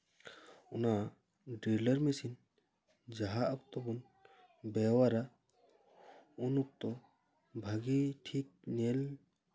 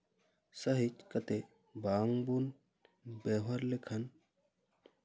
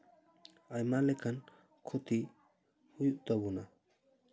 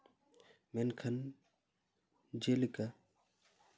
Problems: none marked